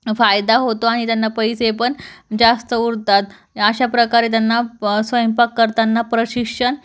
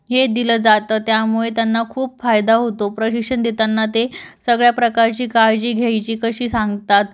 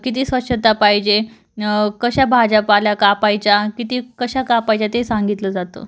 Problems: none marked